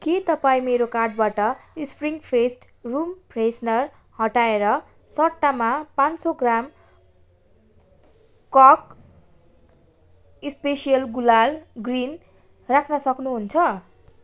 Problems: constant background noise